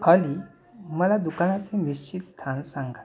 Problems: none marked